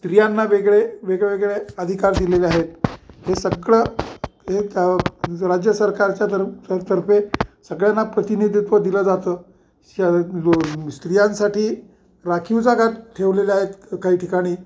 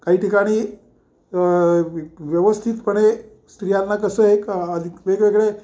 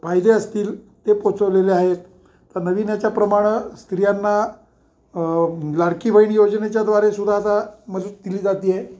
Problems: none marked